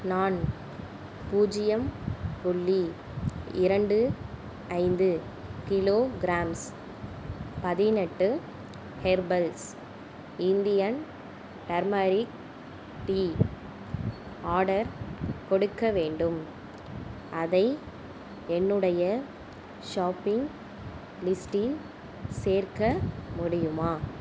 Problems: constant background noise